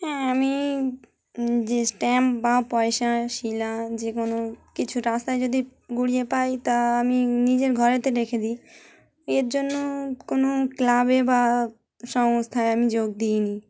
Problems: constant background noise